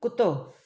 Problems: none marked